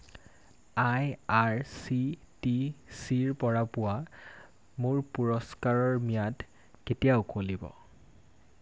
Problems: none marked